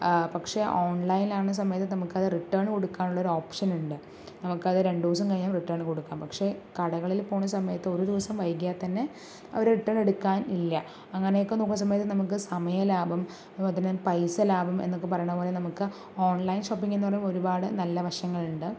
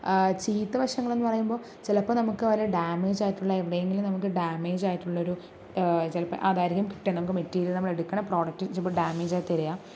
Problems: none marked